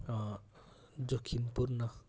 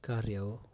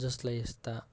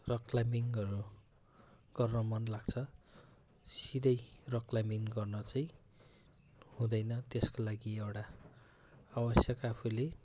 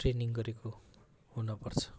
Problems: constant background noise